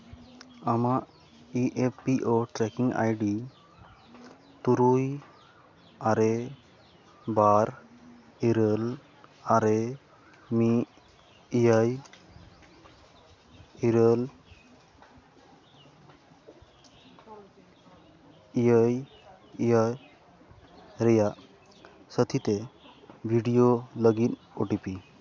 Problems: constant background noise, background conversations at intervals